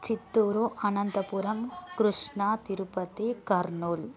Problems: background conversations at intervals